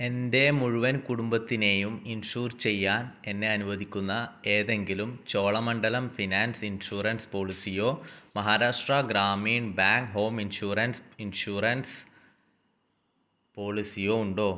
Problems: low volume